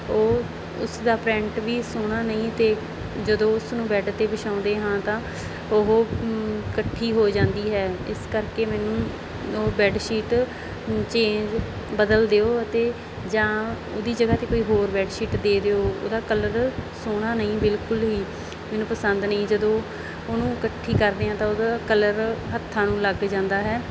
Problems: background sounds at intervals